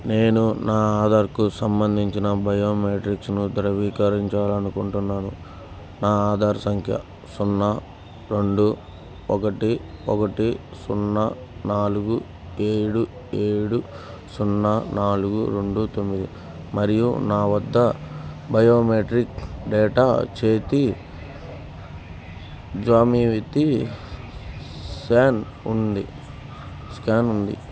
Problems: background sounds at intervals